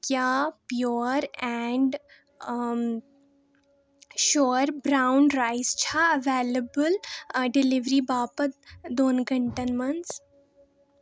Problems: background sounds at intervals